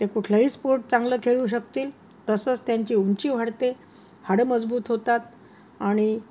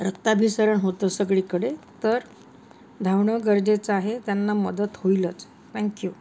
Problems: constant background noise